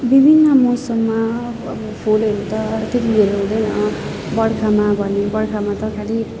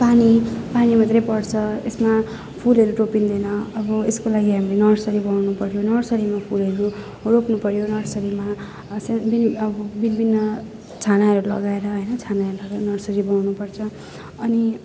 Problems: none marked